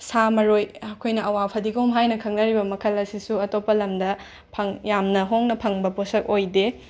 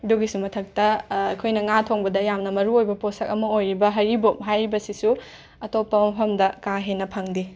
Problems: constant background noise